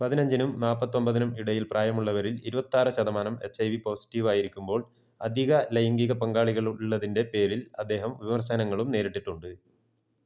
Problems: none marked